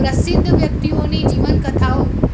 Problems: constant background noise